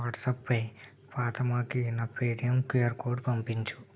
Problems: low volume